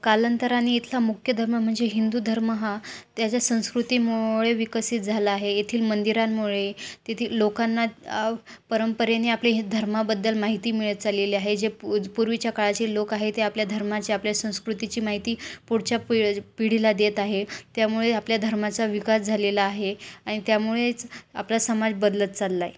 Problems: constant background noise